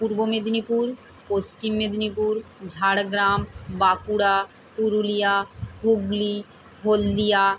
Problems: none marked